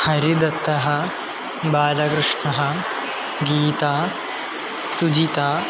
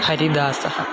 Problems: constant background noise